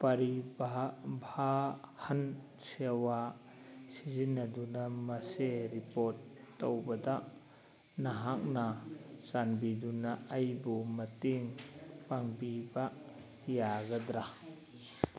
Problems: background conversations at intervals